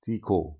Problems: low volume